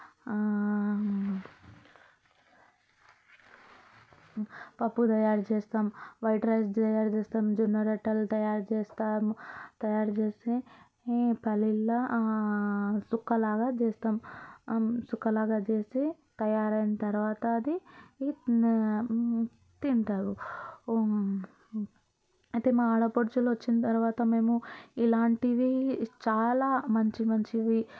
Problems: constant background noise, background conversations at intervals